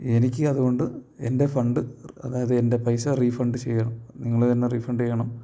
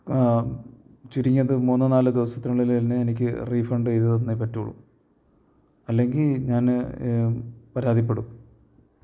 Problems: low volume